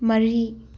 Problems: none marked